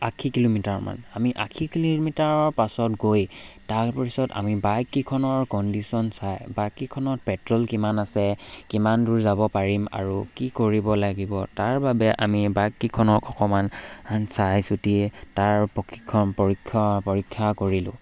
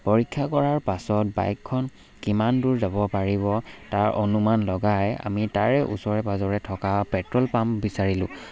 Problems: background sounds at intervals